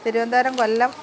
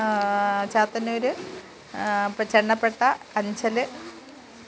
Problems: background sounds at intervals